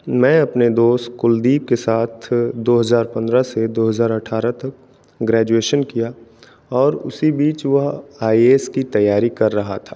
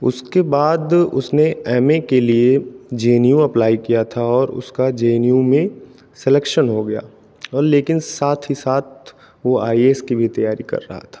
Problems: none marked